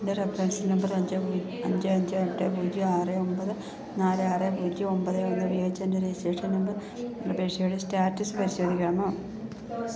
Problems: none marked